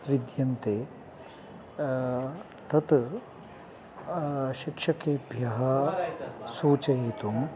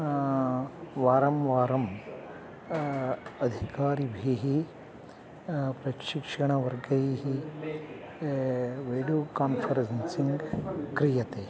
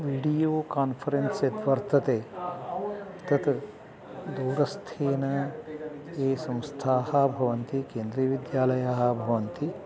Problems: background sounds at intervals